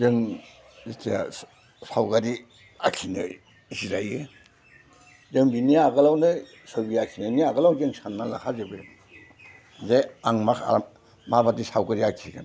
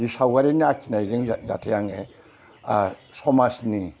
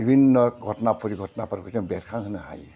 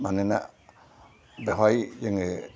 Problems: none marked